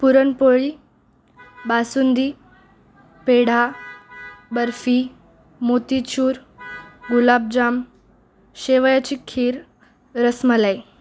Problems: constant background noise